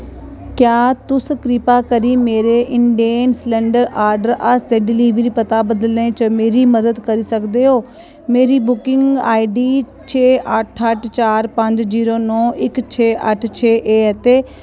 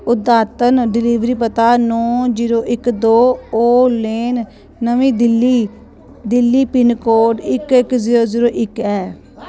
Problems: none marked